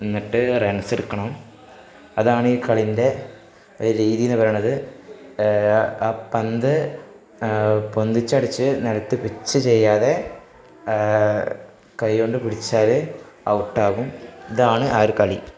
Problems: background sounds at intervals